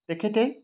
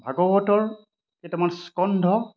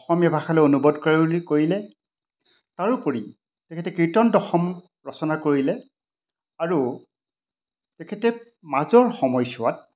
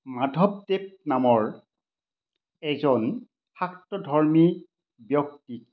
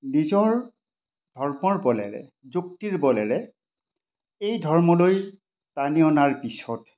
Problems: none marked